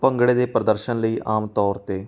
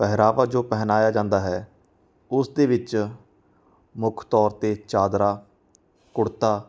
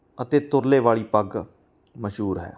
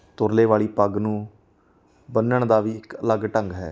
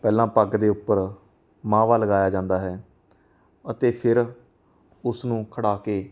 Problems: background sounds at intervals